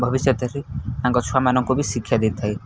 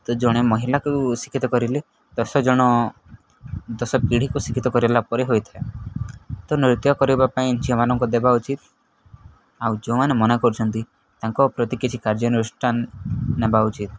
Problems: constant background noise